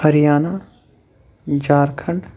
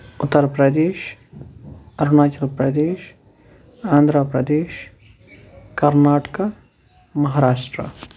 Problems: none marked